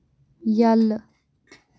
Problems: background sounds at intervals